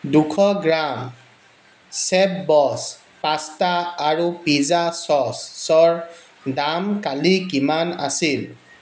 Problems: constant background noise